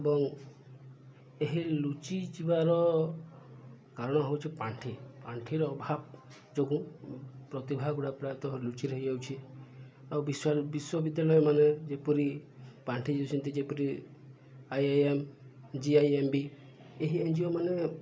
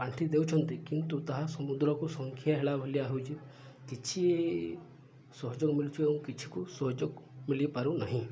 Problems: low volume